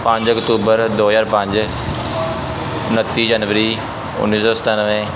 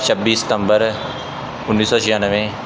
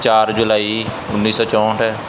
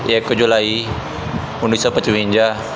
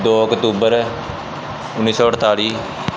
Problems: constant background noise